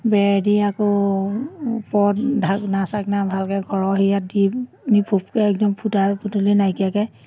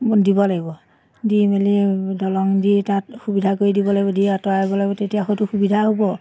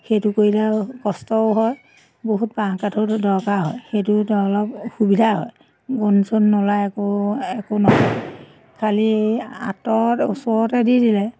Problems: constant background noise, background conversations at intervals